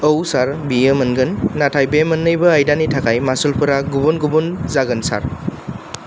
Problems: none marked